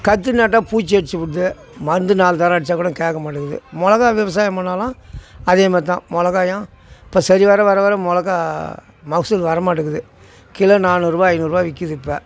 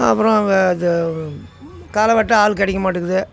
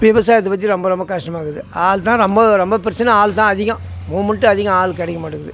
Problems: constant background noise